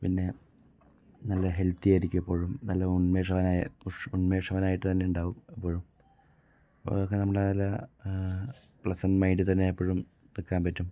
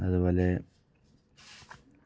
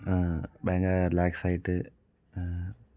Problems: low volume